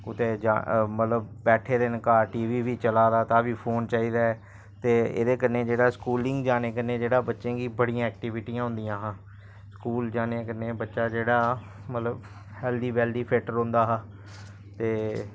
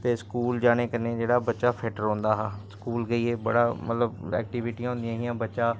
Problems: constant background noise